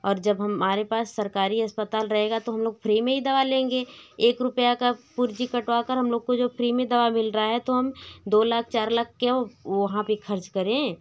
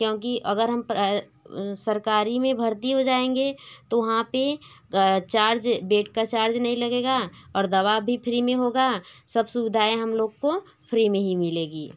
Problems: none marked